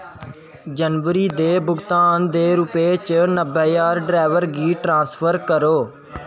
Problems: constant background noise